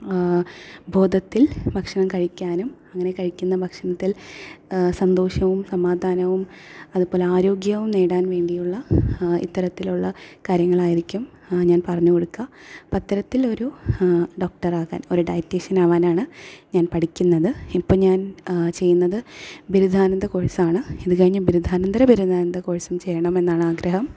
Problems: none marked